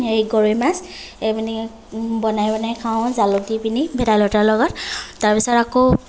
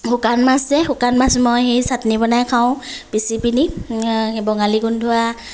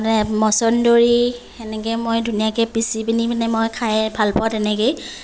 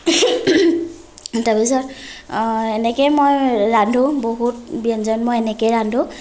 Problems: none marked